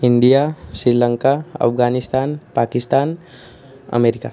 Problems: constant background noise